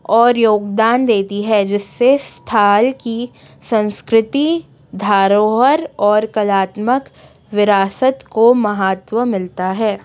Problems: background sounds at intervals, background conversations at intervals